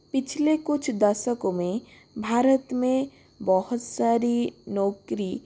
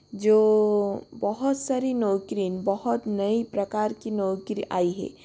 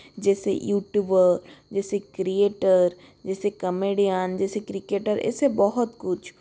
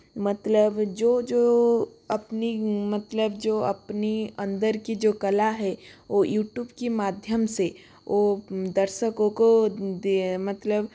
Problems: constant background noise